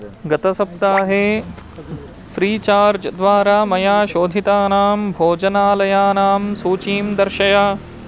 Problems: constant background noise